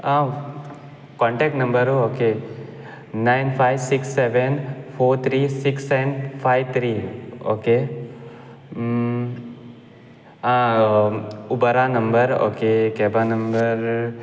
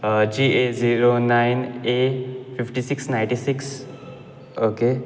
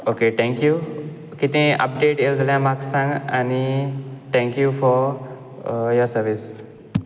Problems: background sounds at intervals